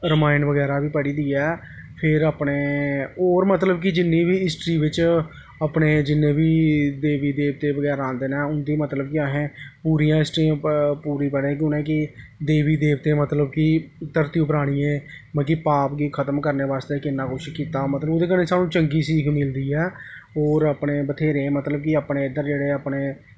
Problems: none marked